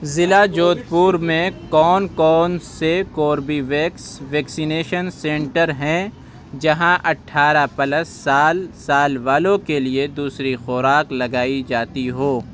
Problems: constant background noise, background conversations at intervals